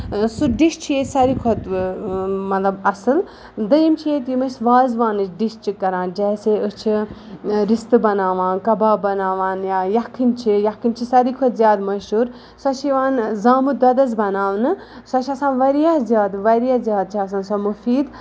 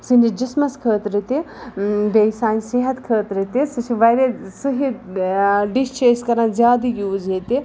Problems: background sounds at intervals